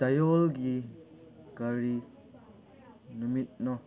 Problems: background sounds at intervals